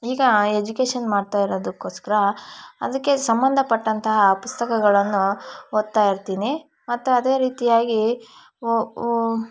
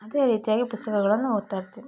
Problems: background sounds at intervals